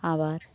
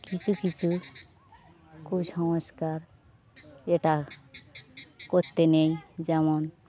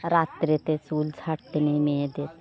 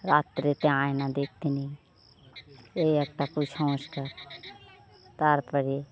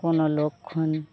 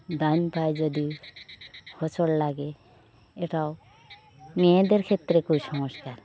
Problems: background sounds at intervals